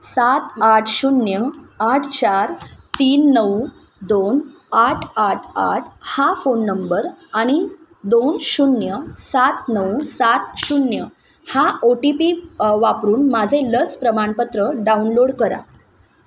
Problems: none marked